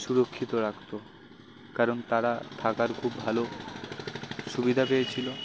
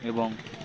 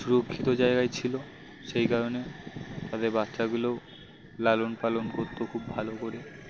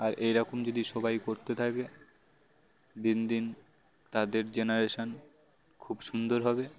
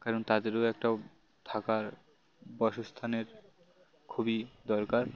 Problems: constant background noise, background conversations at intervals